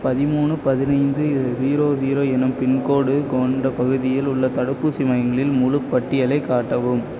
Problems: constant background noise